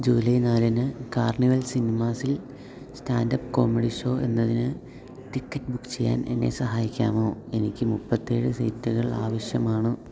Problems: none marked